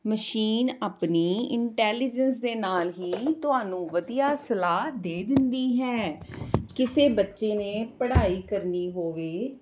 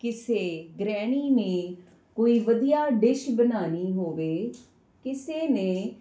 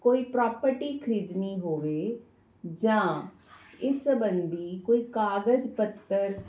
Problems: constant background noise